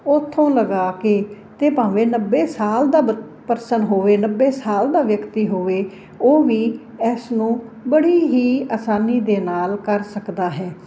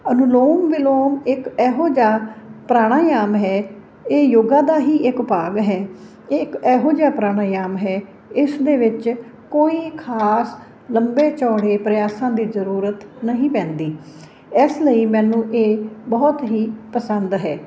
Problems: none marked